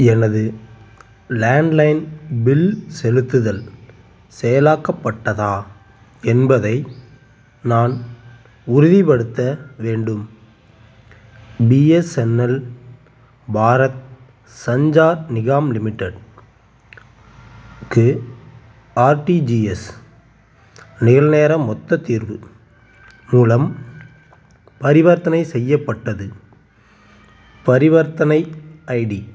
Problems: constant background noise